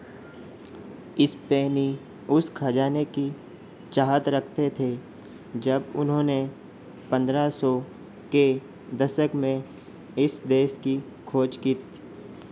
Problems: constant background noise